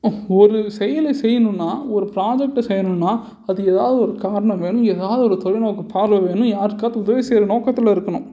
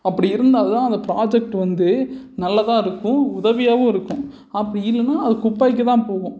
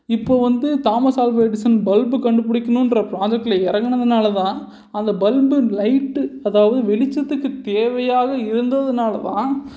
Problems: none marked